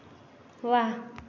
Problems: none marked